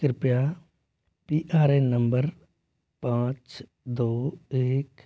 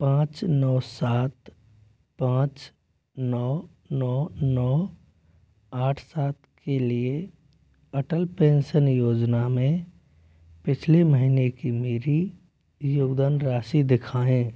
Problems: low volume